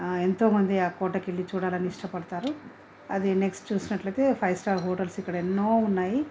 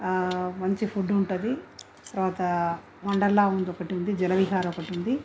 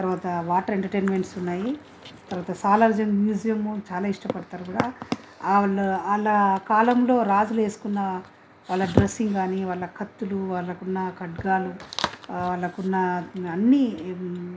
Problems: none marked